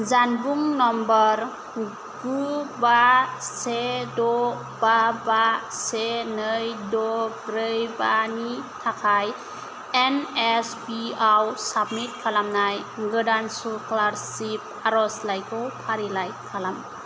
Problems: constant background noise